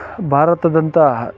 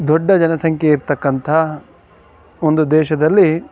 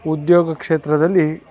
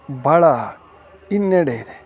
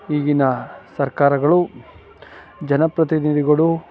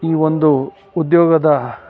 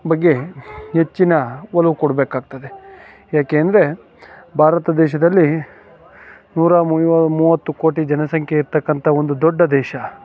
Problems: background sounds at intervals, background conversations at intervals